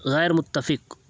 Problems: constant background noise